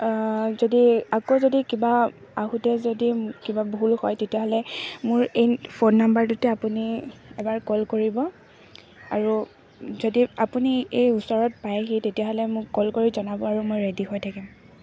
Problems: constant background noise, background conversations at intervals